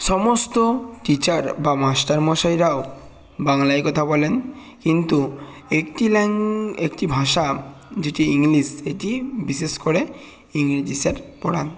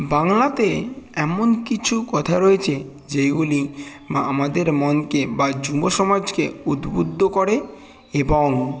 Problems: constant background noise, continuous background conversations